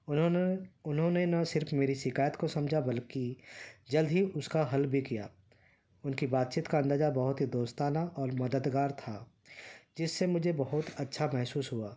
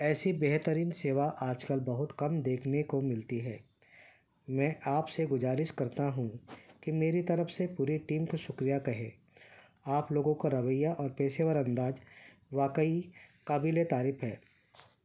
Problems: constant background noise